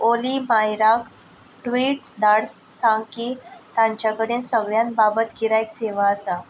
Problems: none marked